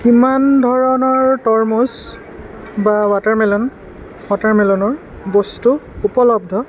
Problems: constant background noise